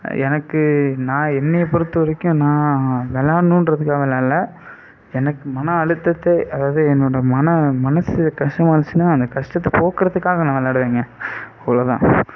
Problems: constant background noise